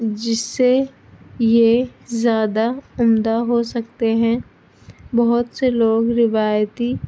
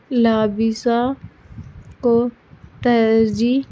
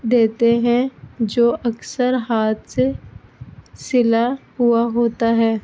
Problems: constant background noise